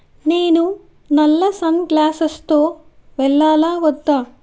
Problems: none marked